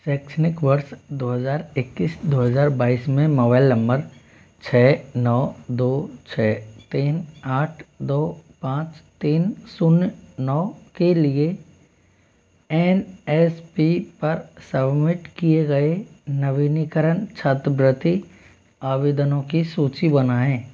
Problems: constant background noise